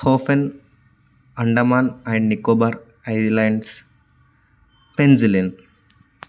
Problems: none marked